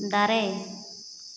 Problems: constant background noise, echo